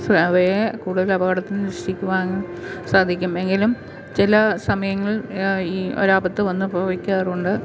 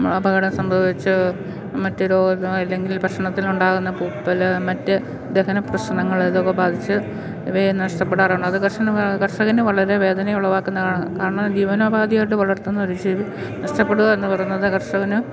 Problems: background sounds at intervals